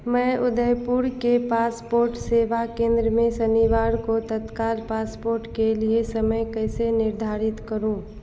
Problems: constant background noise